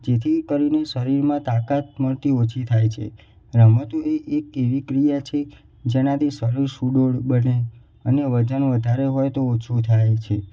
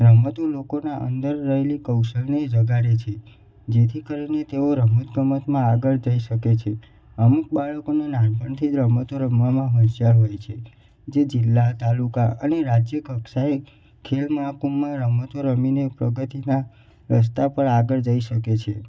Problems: echo